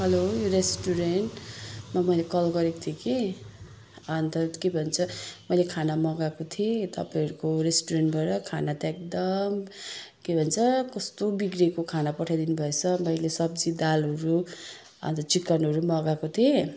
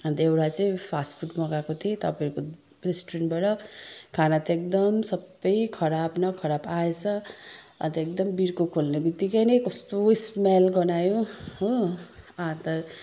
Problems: none marked